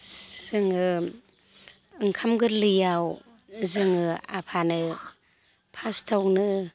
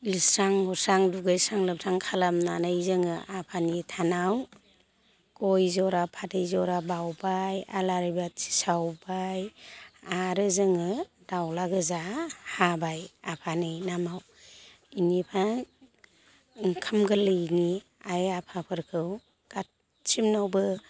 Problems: constant background noise